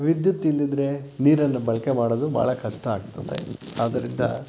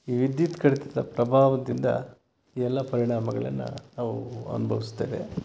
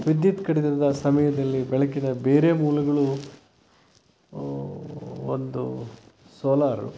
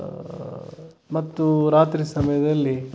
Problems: background sounds at intervals